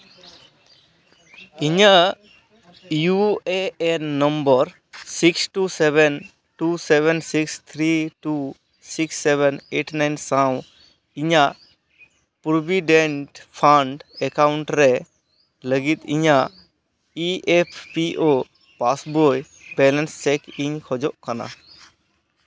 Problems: none marked